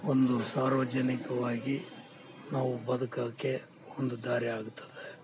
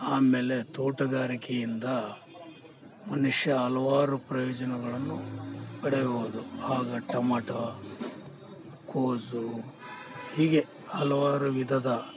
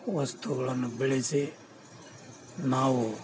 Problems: background sounds at intervals